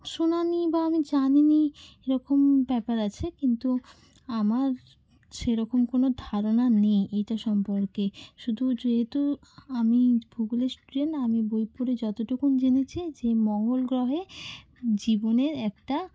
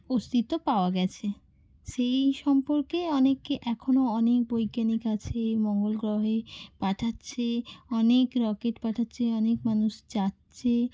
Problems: none marked